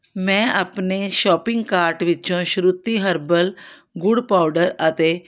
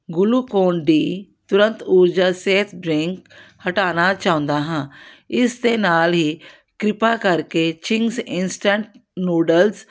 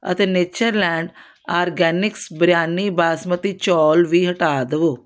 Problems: none marked